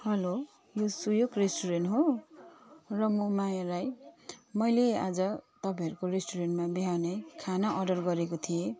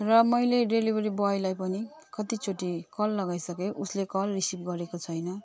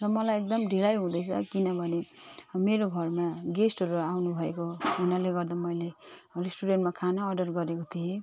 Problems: none marked